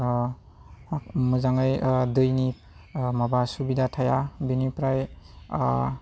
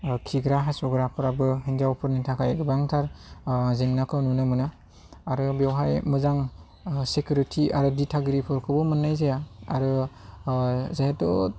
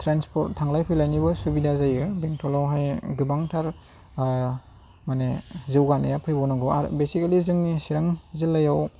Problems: none marked